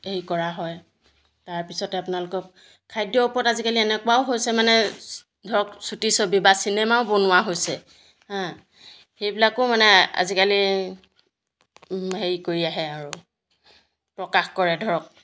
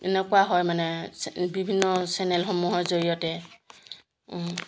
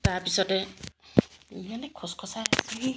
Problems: none marked